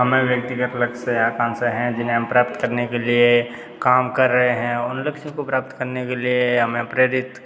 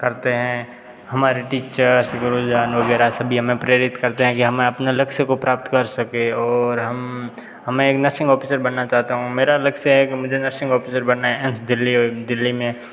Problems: none marked